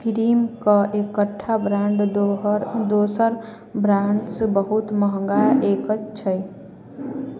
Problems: background sounds at intervals, background conversations at intervals